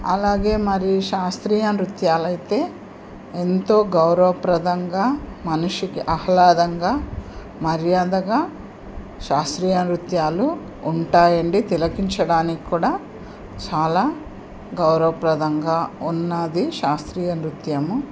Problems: none marked